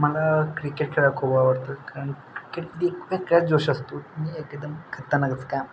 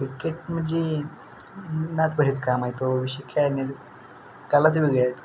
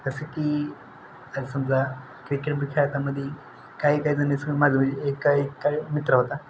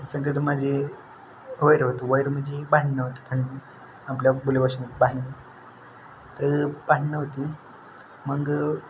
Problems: none marked